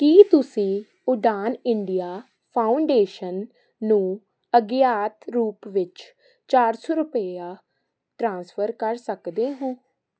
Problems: constant background noise